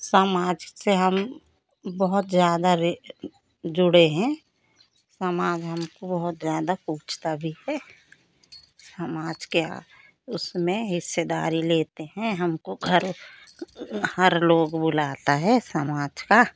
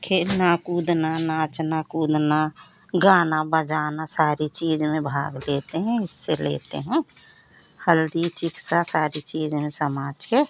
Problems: none marked